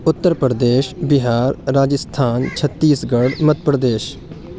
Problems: none marked